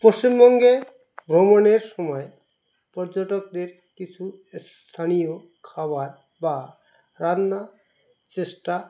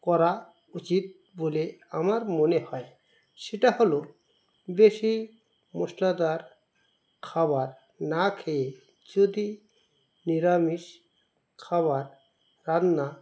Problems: constant background noise